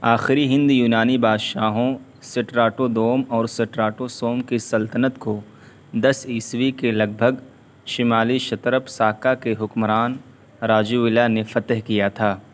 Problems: constant background noise